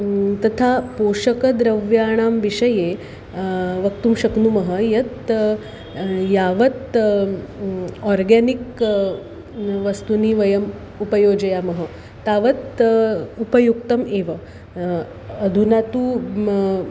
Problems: constant background noise